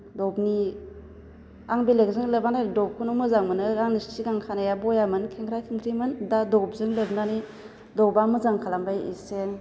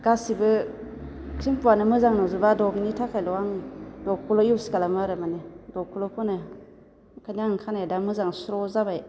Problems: none marked